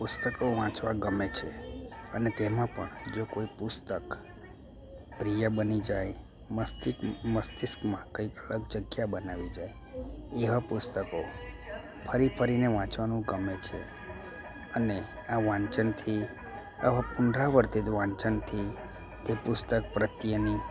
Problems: constant background noise